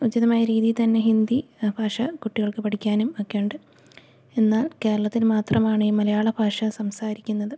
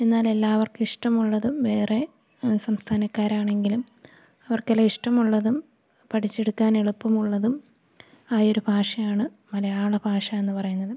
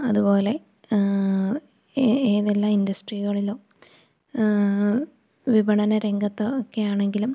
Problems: none marked